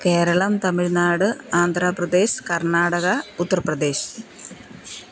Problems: none marked